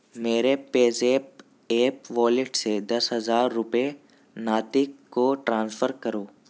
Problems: none marked